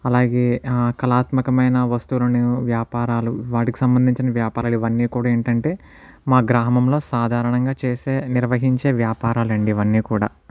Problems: none marked